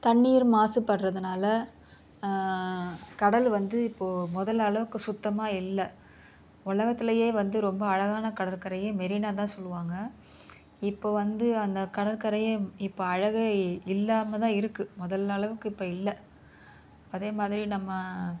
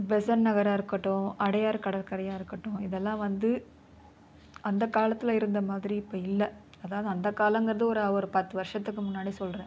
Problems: none marked